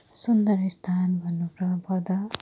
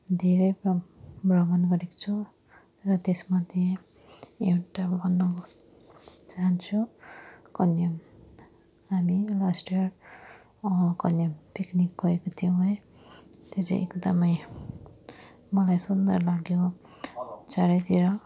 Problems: continuous background conversations, low volume